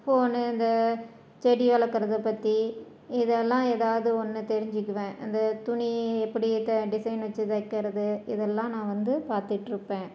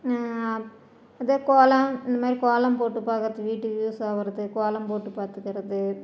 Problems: none marked